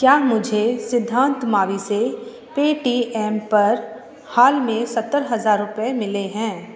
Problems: constant background noise, background conversations at intervals